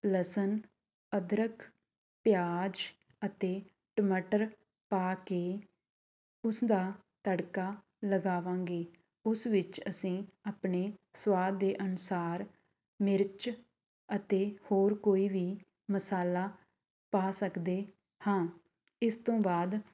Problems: background sounds at intervals, background conversations at intervals